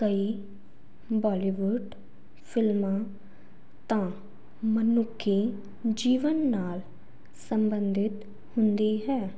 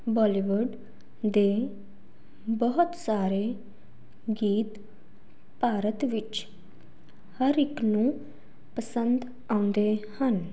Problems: constant background noise